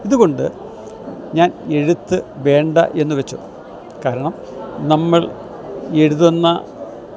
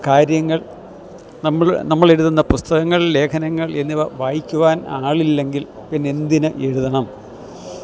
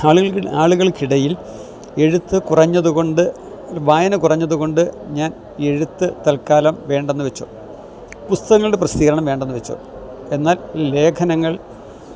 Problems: none marked